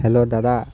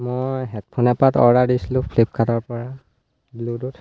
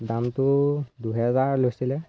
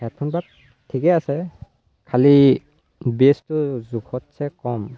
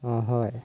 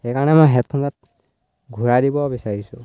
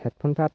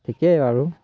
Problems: constant background noise